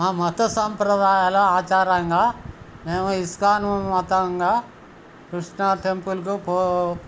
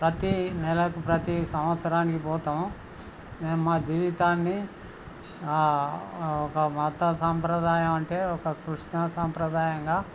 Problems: none marked